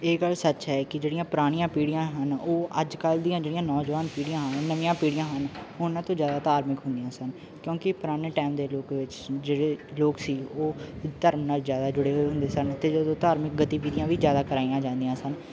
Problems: none marked